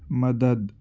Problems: constant background noise